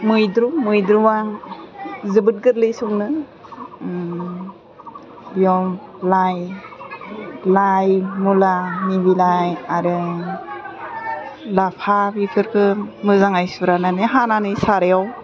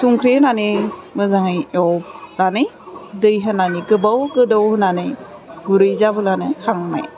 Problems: constant background noise